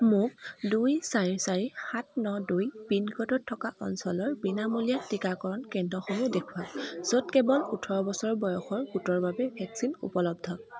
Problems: background sounds at intervals, continuous background conversations